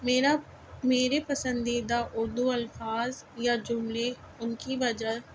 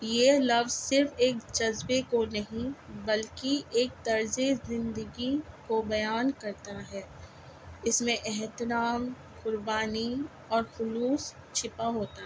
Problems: constant background noise